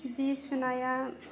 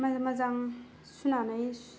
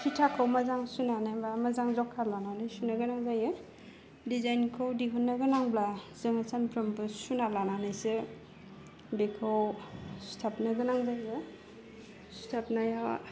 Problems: low volume